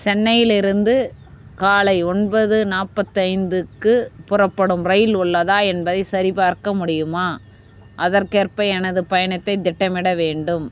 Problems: constant background noise